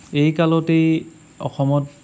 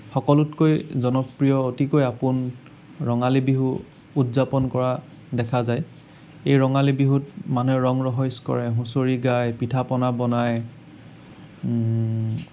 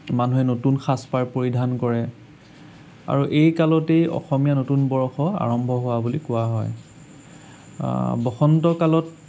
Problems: none marked